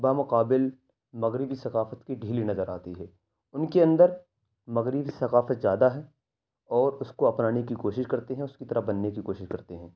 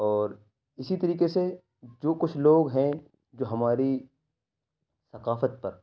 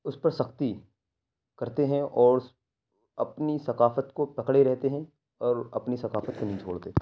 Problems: none marked